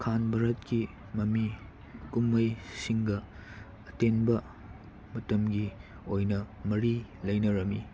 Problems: constant background noise